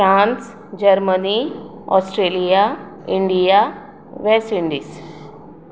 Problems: echo